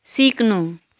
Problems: none marked